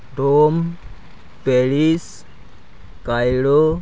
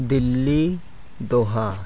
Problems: background sounds at intervals